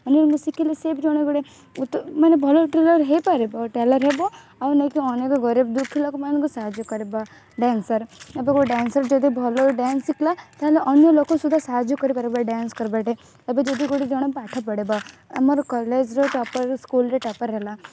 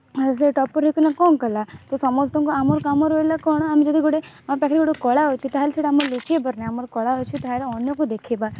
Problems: constant background noise